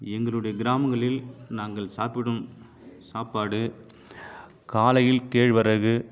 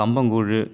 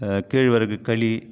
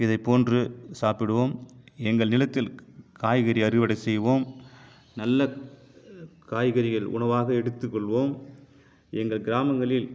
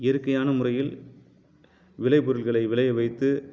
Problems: none marked